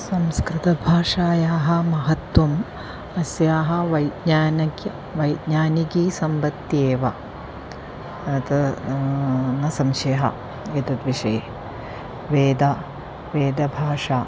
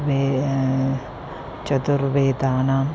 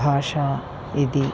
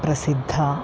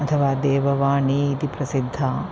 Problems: constant background noise